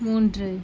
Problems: low volume